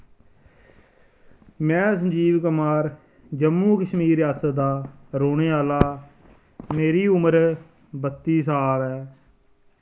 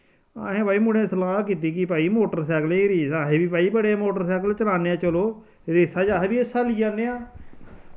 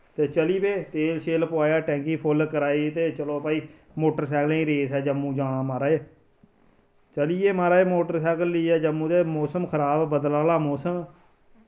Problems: none marked